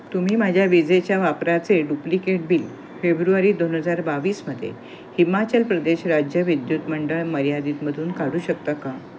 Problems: constant background noise